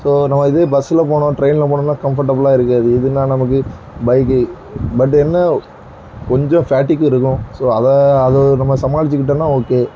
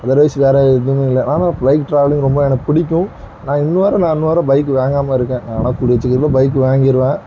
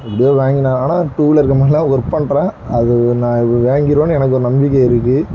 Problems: background sounds at intervals